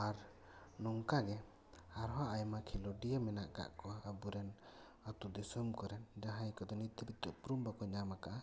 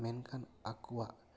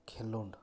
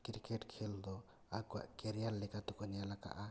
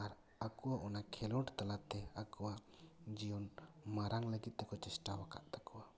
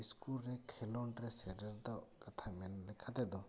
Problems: none marked